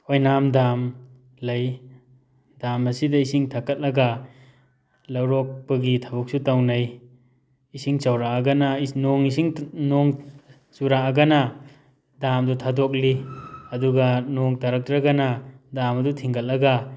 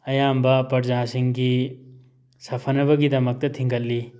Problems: background sounds at intervals